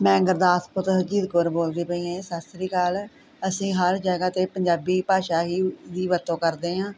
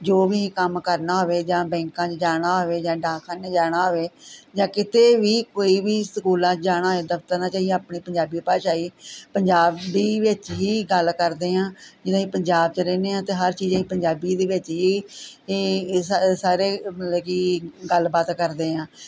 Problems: constant background noise, background conversations at intervals